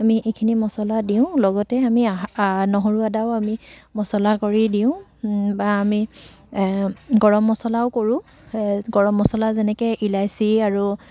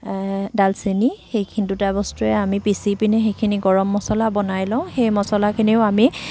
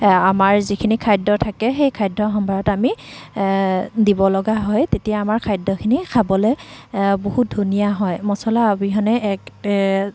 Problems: constant background noise